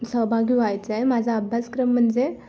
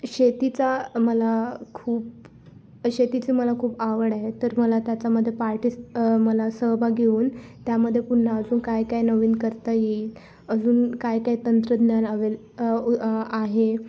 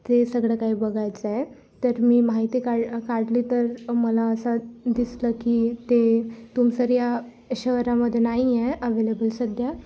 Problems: constant background noise